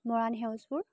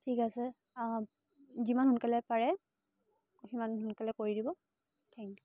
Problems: none marked